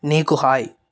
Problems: none marked